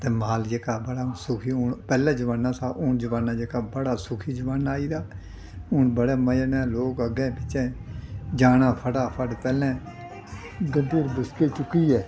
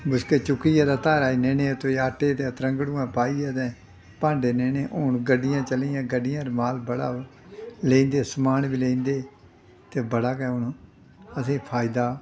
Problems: none marked